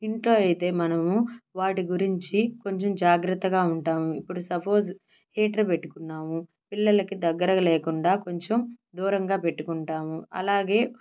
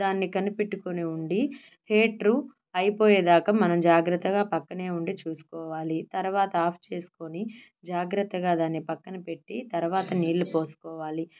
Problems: none marked